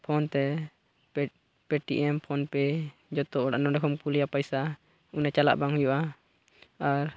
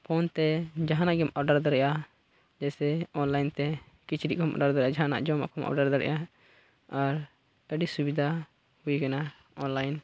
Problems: constant background noise, low volume